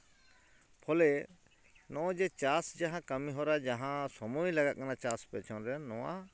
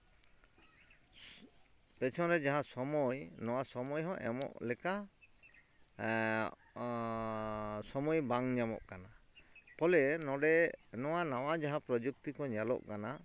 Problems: background sounds at intervals